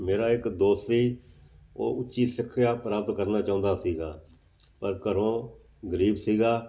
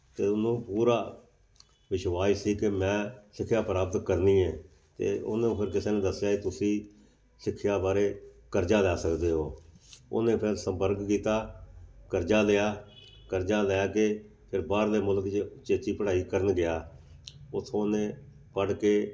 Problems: none marked